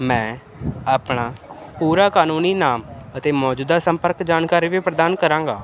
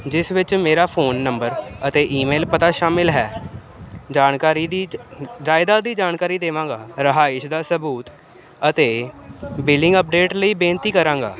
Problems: constant background noise